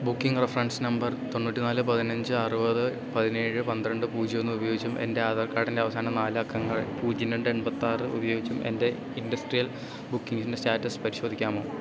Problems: constant background noise